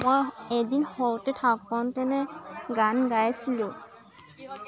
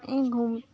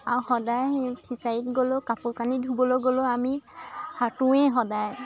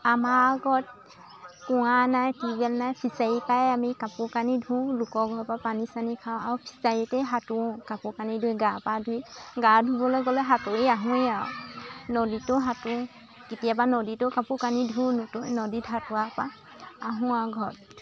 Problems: constant background noise, continuous background conversations